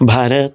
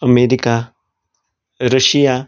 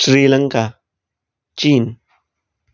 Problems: none marked